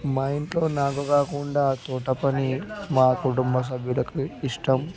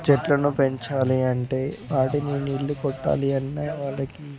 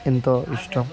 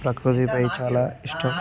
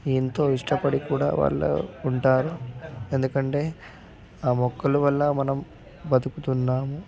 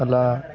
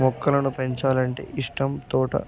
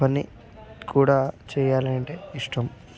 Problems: background conversations at intervals, low volume